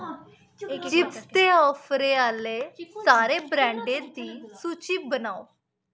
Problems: none marked